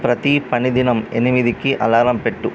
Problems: none marked